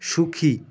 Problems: constant background noise, background conversations at intervals